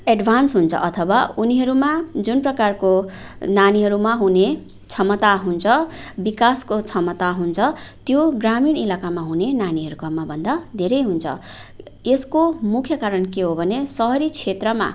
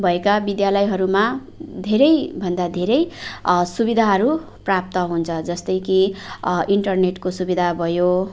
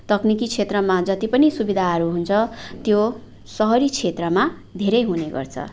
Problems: background sounds at intervals